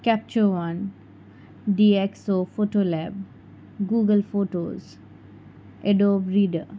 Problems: constant background noise, background conversations at intervals